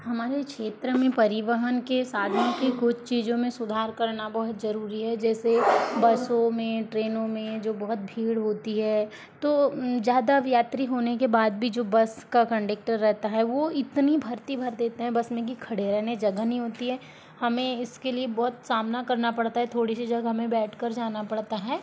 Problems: constant background noise, background conversations at intervals